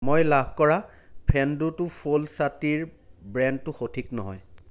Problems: none marked